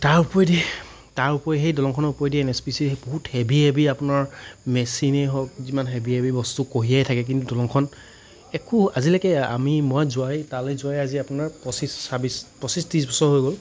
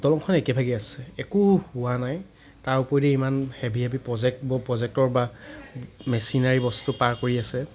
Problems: none marked